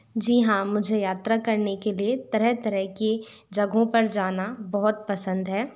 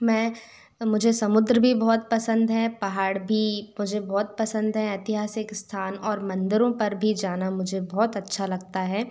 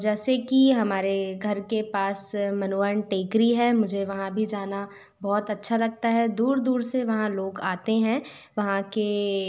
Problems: constant background noise